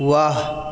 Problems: background sounds at intervals